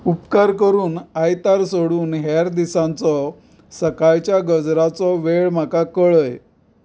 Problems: background sounds at intervals